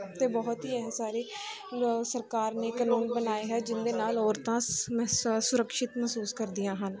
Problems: background sounds at intervals, background conversations at intervals